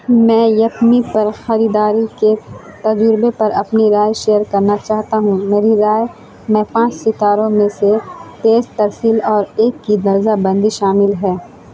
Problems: constant background noise